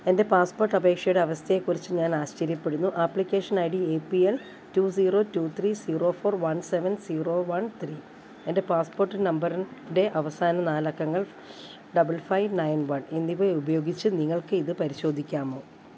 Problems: none marked